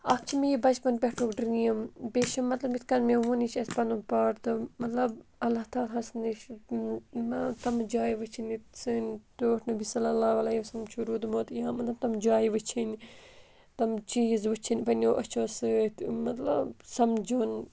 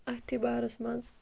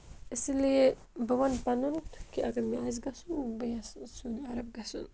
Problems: constant background noise